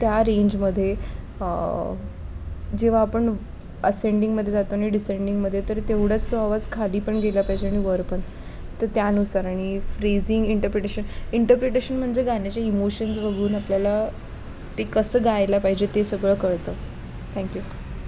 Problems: constant background noise